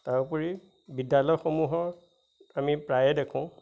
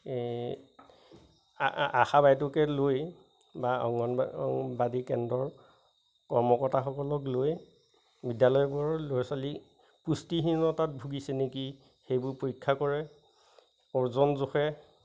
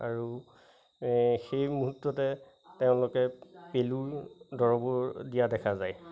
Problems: constant background noise, background conversations at intervals